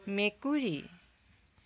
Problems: background sounds at intervals